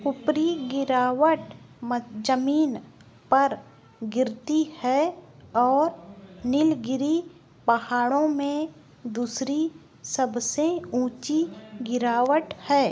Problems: constant background noise, background conversations at intervals